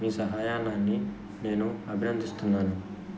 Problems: constant background noise